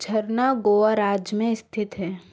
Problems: none marked